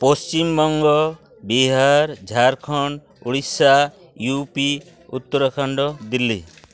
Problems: background sounds at intervals